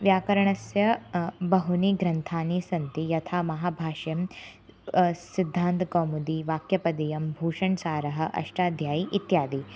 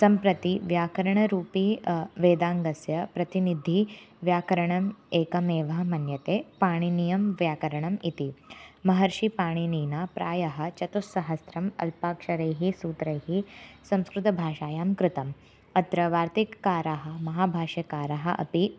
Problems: constant background noise